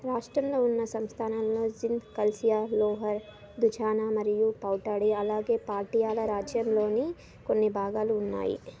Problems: background sounds at intervals, background conversations at intervals